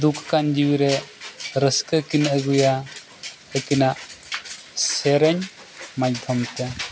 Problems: continuous background conversations